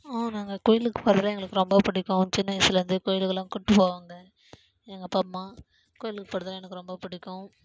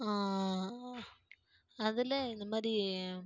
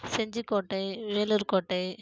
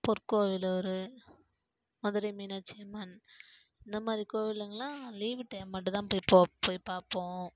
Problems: low volume